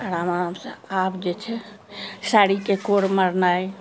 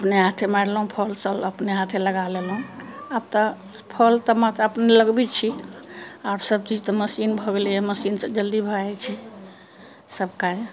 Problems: constant background noise